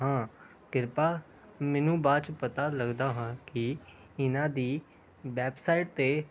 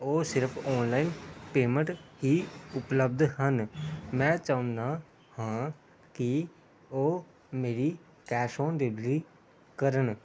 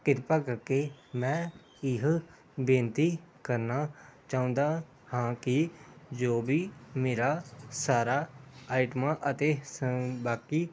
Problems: background sounds at intervals